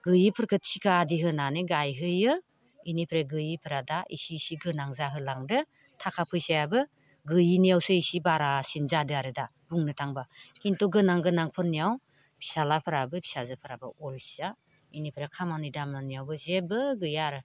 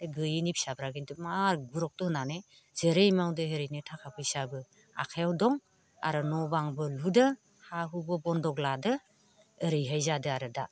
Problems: none marked